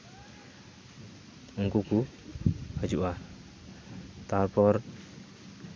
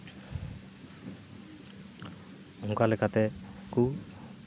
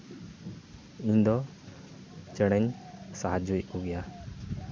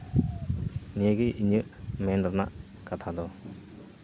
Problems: constant background noise, background conversations at intervals